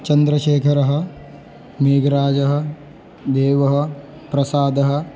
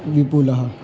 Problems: constant background noise